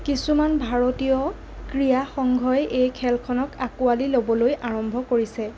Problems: none marked